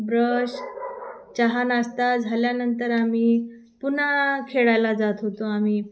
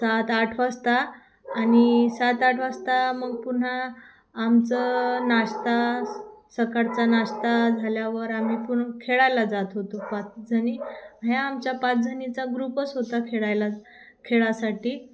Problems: constant background noise